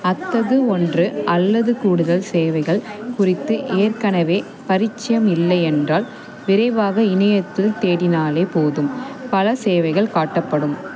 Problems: none marked